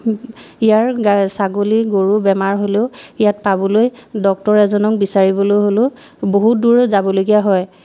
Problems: none marked